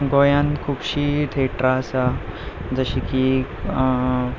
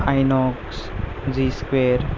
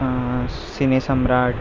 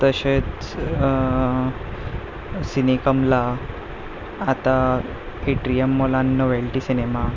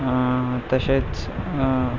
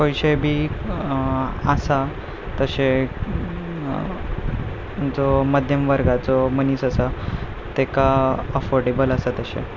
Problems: constant background noise, low volume